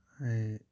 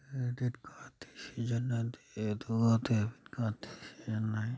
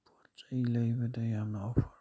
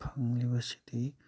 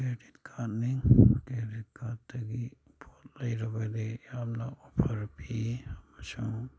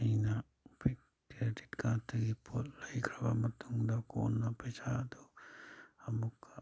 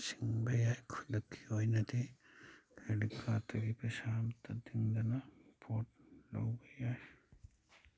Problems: background sounds at intervals